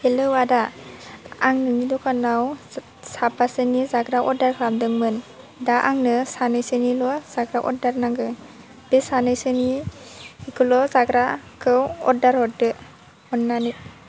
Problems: constant background noise